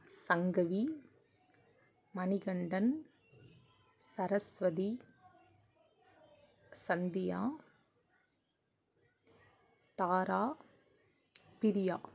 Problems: none marked